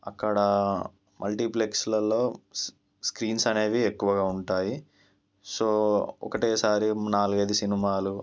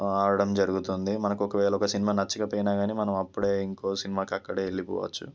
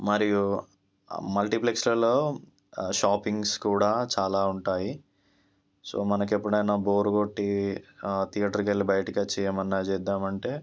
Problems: none marked